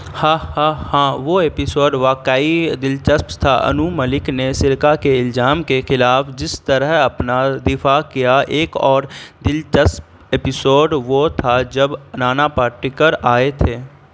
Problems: constant background noise